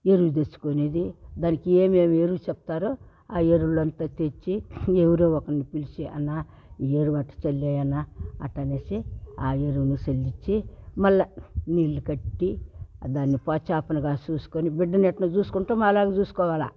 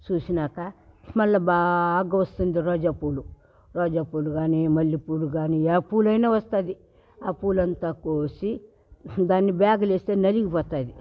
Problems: background sounds at intervals